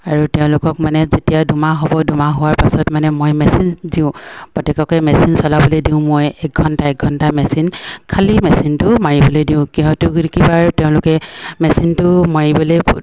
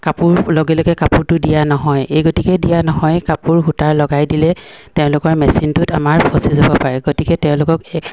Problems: none marked